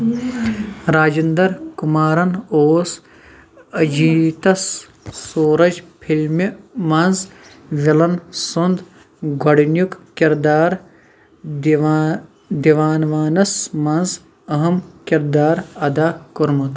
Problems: background sounds at intervals, background conversations at intervals